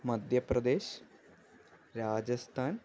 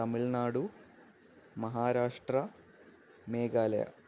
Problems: constant background noise